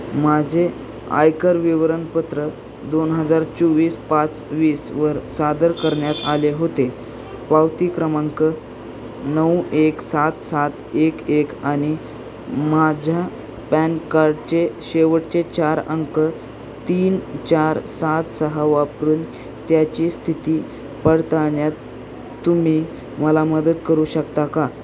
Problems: constant background noise